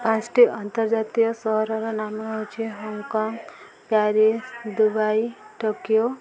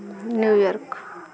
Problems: constant background noise, continuous background conversations